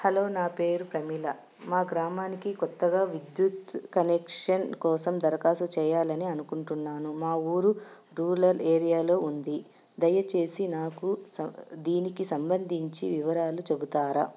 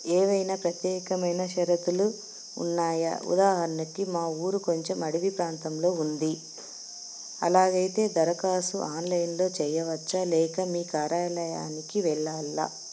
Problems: constant background noise